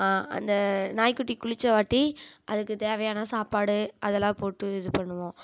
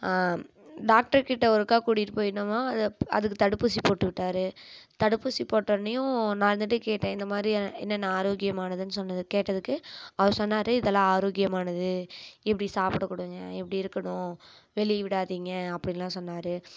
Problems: none marked